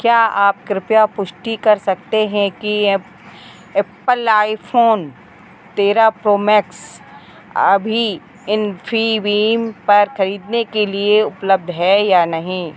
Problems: none marked